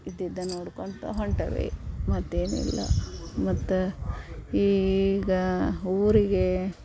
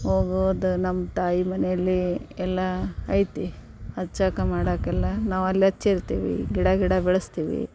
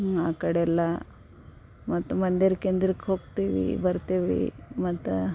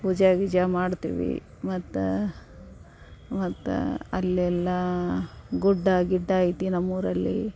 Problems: background sounds at intervals